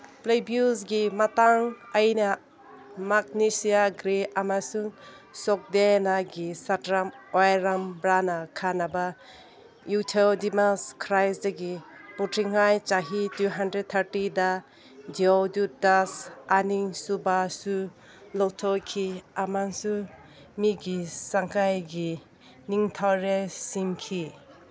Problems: background sounds at intervals, background conversations at intervals